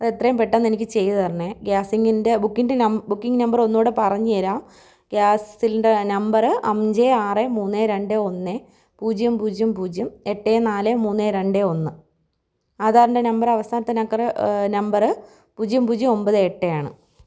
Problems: none marked